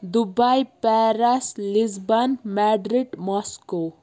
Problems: none marked